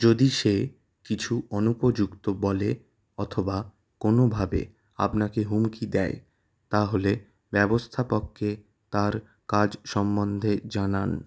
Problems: none marked